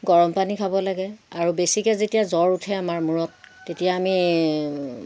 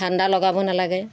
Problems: constant background noise